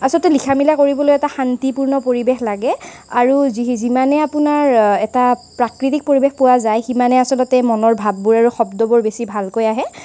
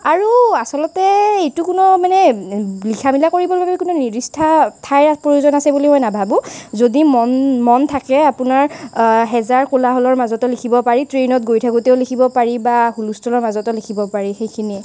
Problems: constant background noise